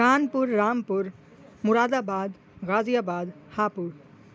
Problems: constant background noise